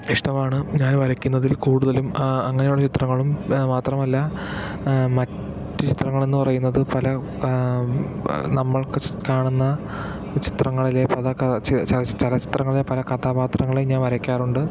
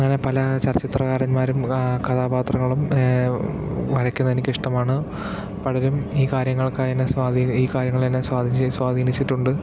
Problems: background sounds at intervals, background conversations at intervals